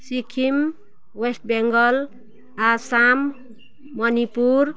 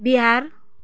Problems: background sounds at intervals